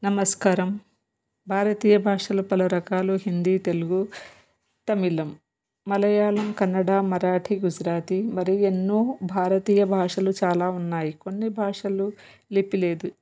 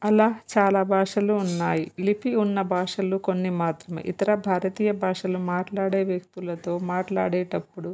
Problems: none marked